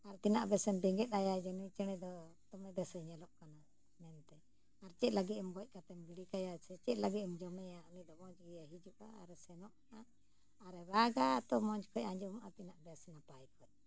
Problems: low volume